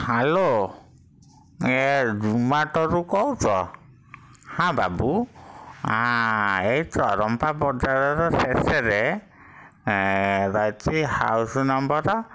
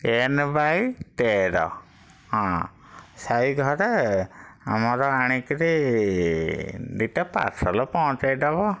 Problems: none marked